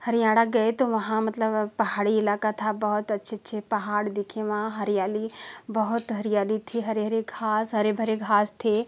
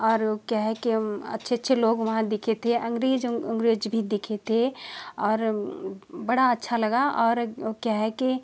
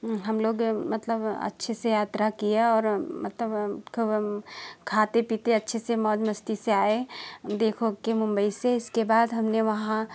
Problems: constant background noise